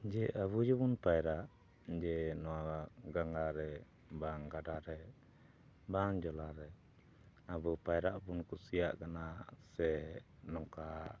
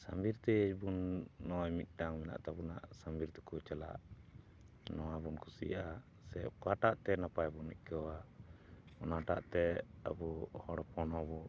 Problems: none marked